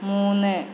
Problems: none marked